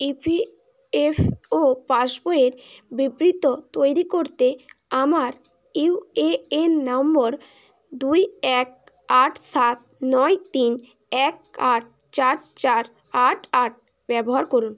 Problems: none marked